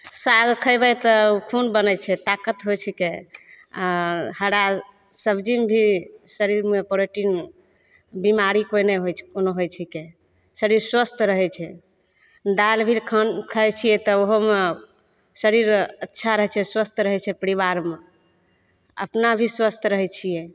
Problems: none marked